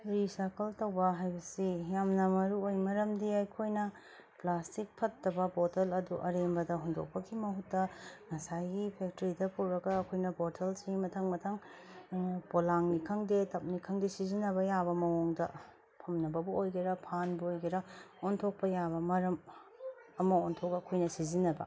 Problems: none marked